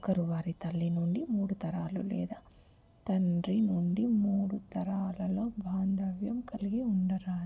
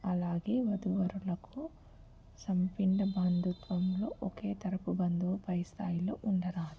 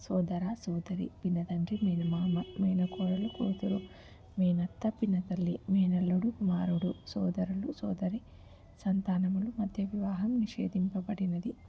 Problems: background sounds at intervals, low volume